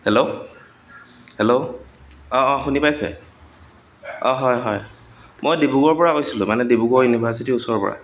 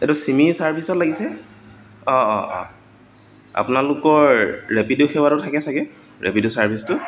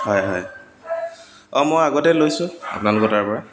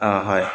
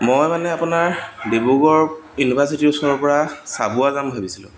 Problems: constant background noise, background conversations at intervals